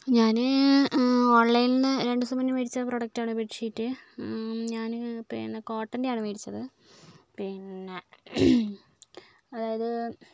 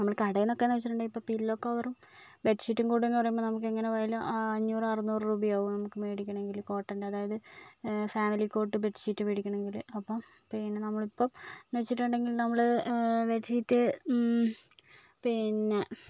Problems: low volume